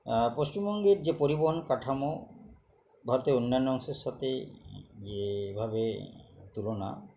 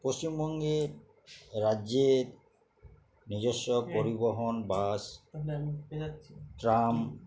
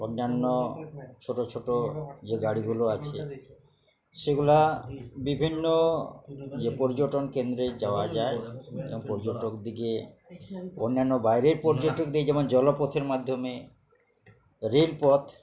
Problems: continuous background conversations